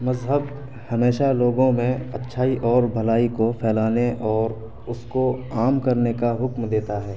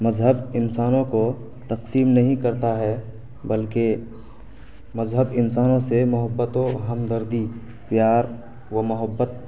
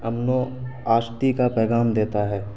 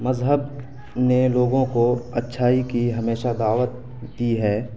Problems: constant background noise